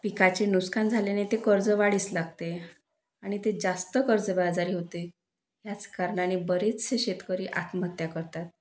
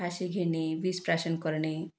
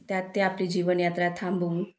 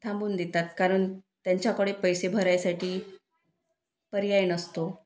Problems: none marked